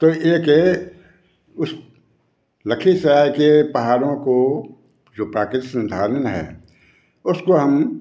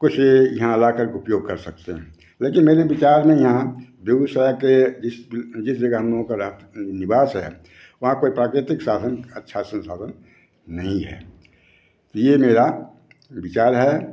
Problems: constant background noise